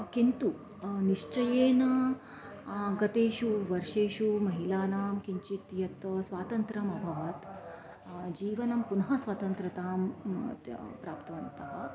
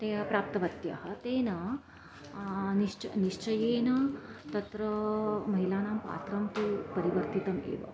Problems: background sounds at intervals